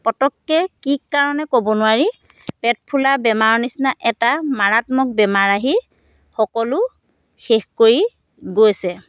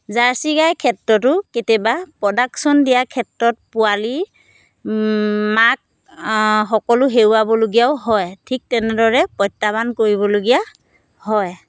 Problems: constant background noise